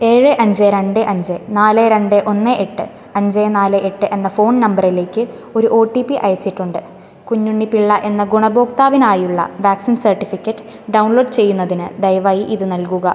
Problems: constant background noise